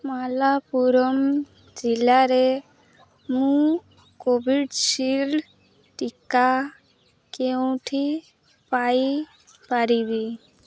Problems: none marked